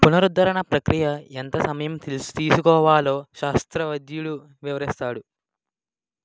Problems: background sounds at intervals